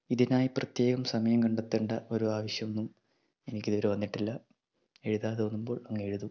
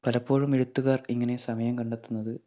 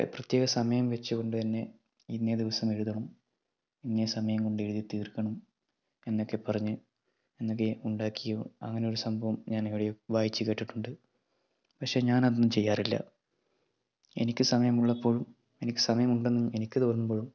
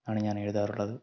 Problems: low volume